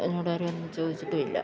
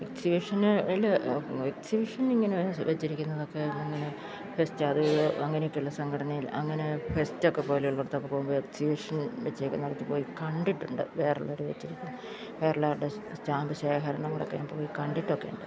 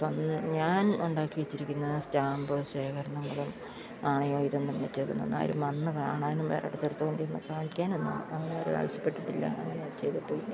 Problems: constant background noise, low volume